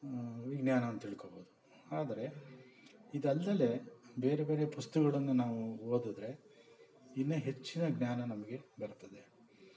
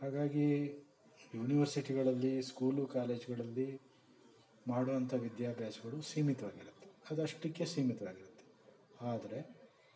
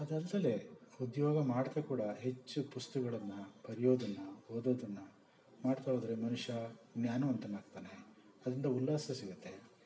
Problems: background sounds at intervals